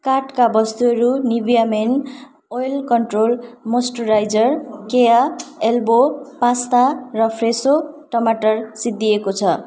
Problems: background sounds at intervals